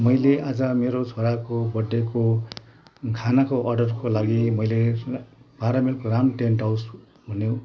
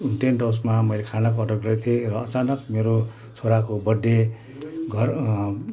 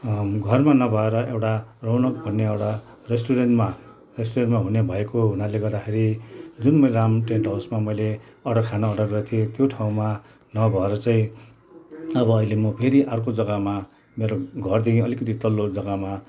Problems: background sounds at intervals, background conversations at intervals